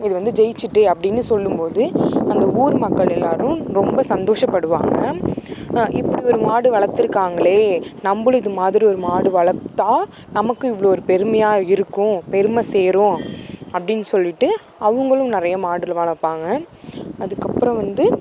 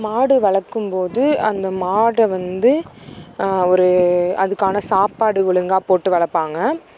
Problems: constant background noise